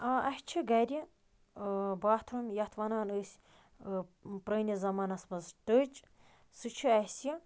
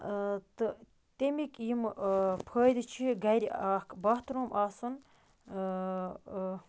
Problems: background sounds at intervals